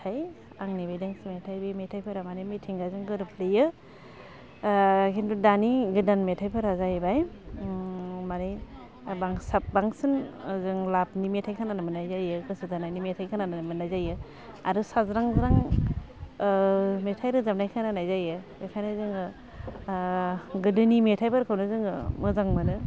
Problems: constant background noise